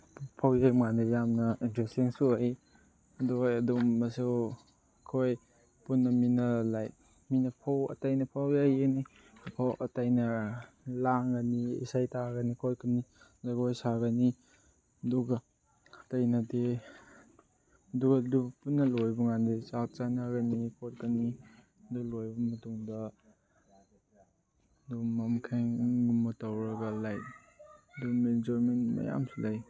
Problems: background sounds at intervals